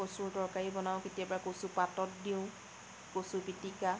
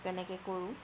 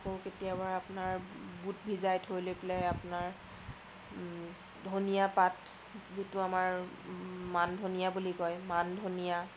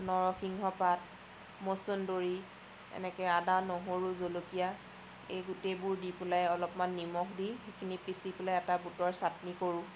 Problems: constant background noise